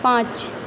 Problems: constant background noise, echo